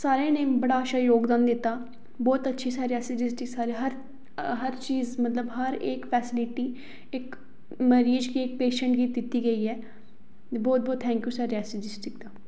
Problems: echo